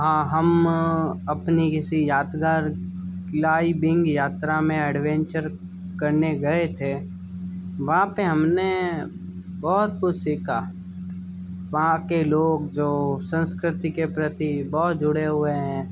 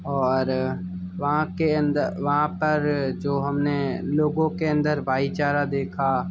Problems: constant background noise, background conversations at intervals